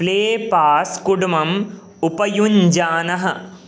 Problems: none marked